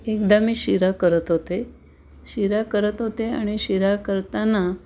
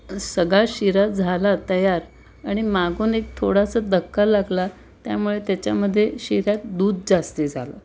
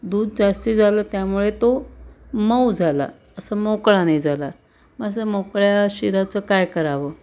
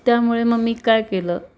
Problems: background sounds at intervals